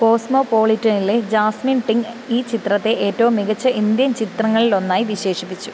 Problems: constant background noise